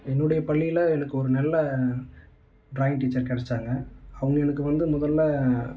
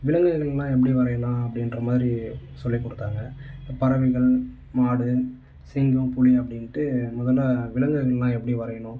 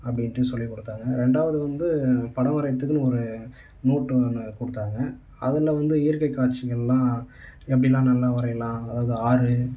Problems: none marked